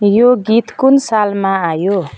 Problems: background sounds at intervals